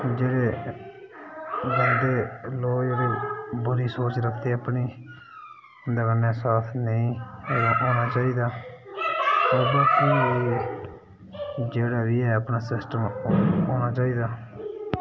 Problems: background sounds at intervals